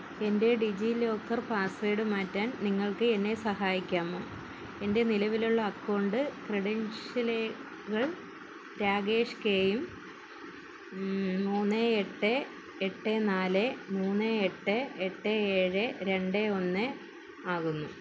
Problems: constant background noise